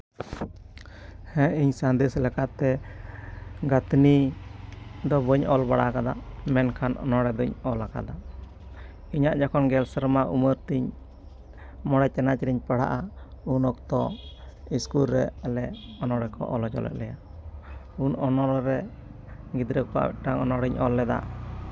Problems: background sounds at intervals